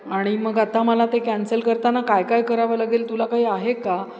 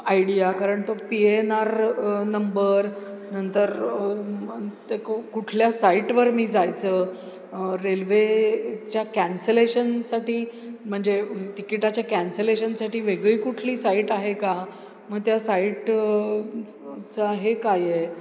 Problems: constant background noise